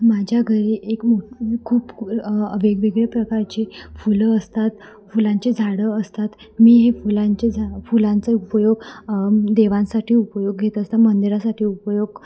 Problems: constant background noise